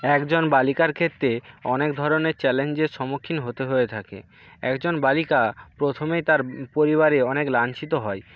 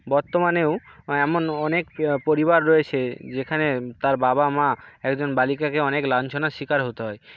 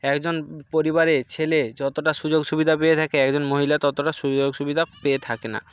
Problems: background sounds at intervals, background conversations at intervals